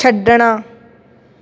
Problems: none marked